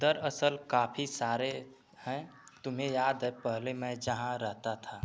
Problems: none marked